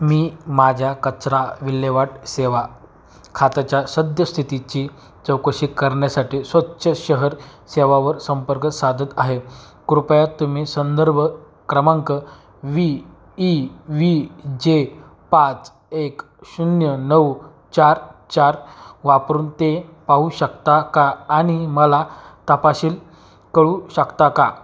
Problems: background sounds at intervals